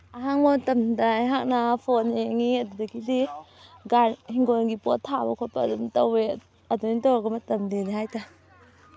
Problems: background sounds at intervals